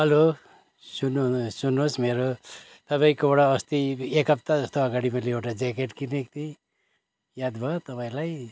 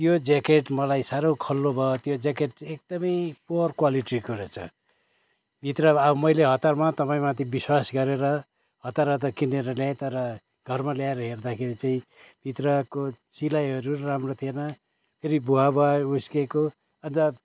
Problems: constant background noise